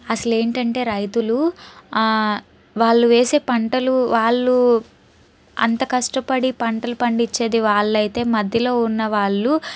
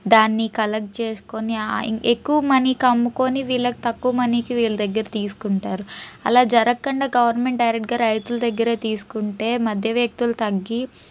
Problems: none marked